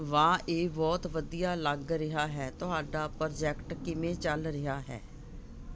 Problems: none marked